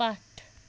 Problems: background sounds at intervals